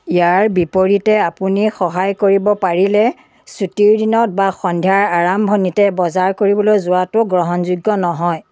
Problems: background sounds at intervals